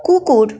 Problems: continuous background conversations